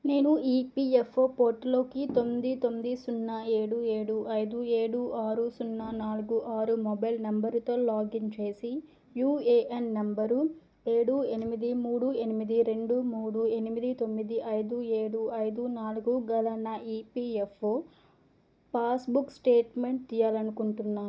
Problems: low volume